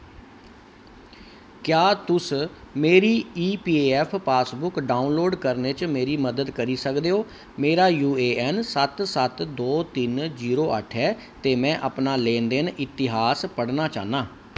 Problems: constant background noise